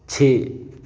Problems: none marked